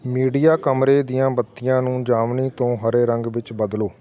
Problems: continuous background conversations